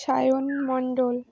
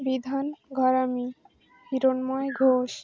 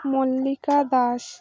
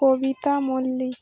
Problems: constant background noise, background conversations at intervals